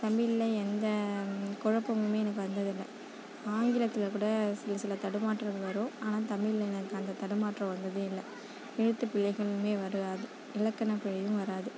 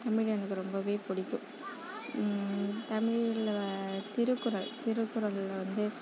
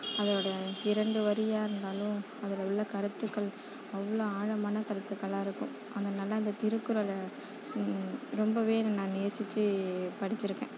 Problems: none marked